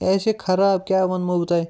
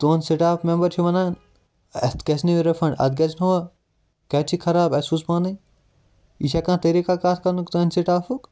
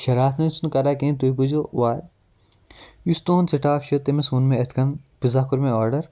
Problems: none marked